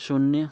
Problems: continuous background conversations